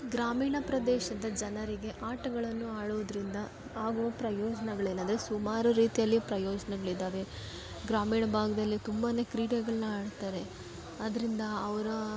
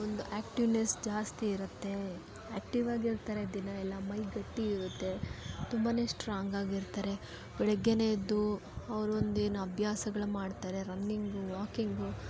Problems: background sounds at intervals